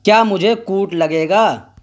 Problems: constant background noise